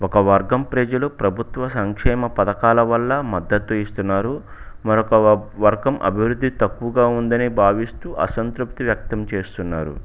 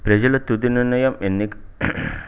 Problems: background sounds at intervals